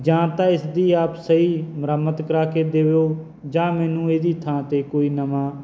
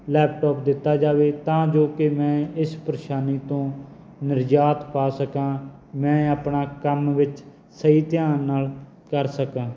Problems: background sounds at intervals